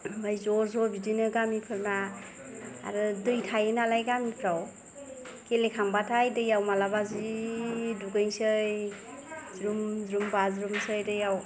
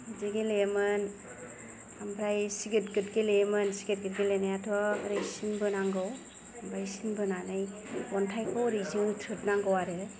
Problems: low volume